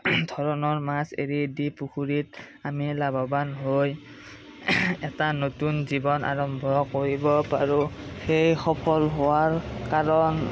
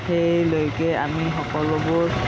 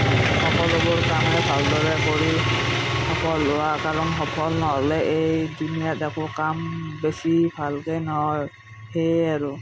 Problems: background sounds at intervals